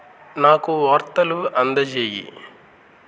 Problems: constant background noise